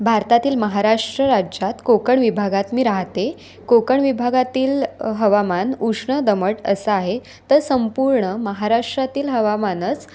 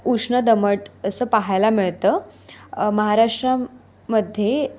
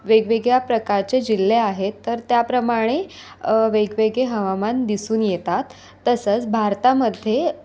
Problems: constant background noise, continuous background conversations